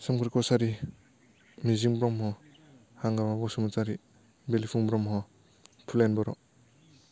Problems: none marked